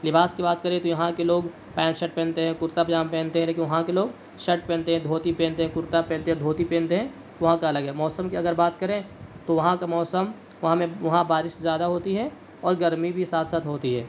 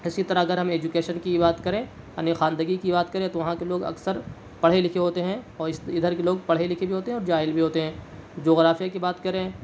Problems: none marked